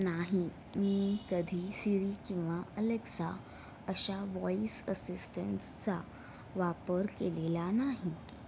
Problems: background sounds at intervals